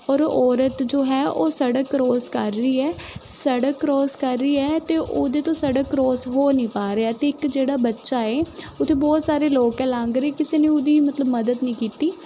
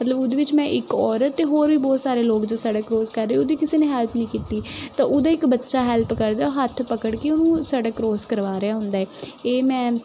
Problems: constant background noise